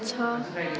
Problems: constant background noise, continuous background conversations